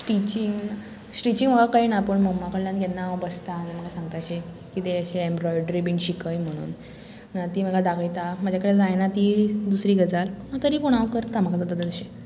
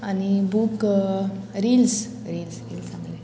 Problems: constant background noise